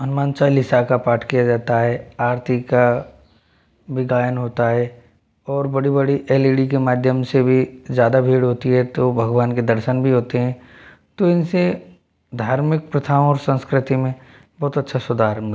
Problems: none marked